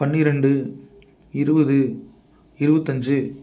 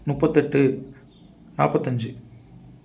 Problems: none marked